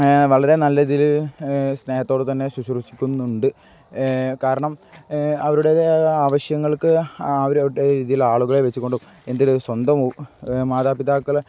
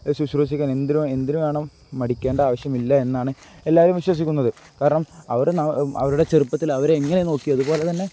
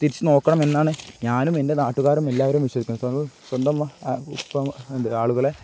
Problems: none marked